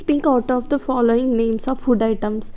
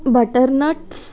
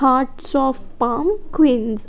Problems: none marked